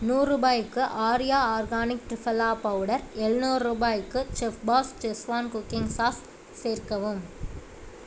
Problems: none marked